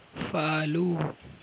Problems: constant background noise